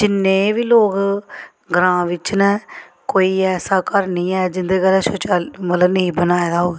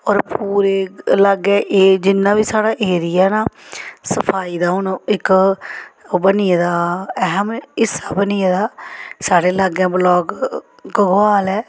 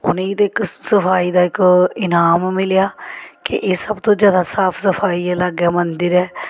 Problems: none marked